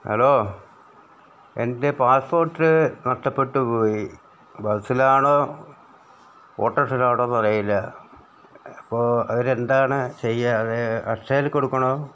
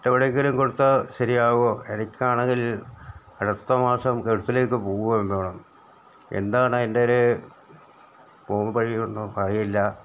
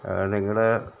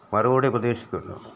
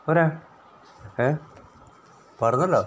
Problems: low volume